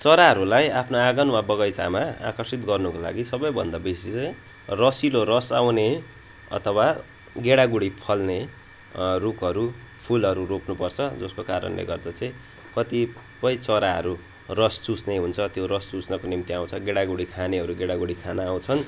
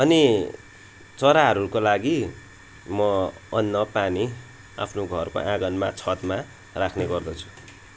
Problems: constant background noise